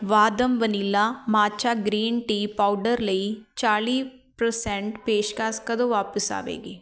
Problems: none marked